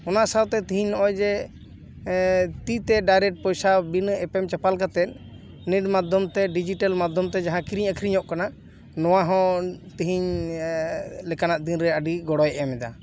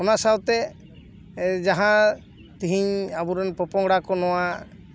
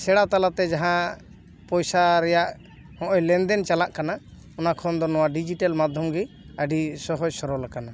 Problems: background sounds at intervals